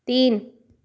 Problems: none marked